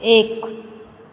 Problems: none marked